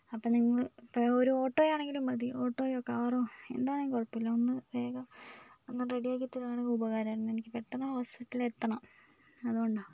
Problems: background sounds at intervals, low volume